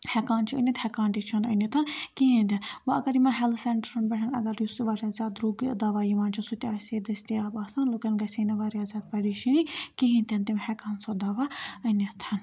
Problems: background sounds at intervals